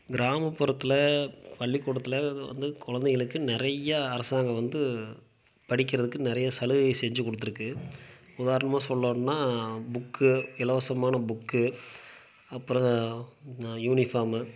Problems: none marked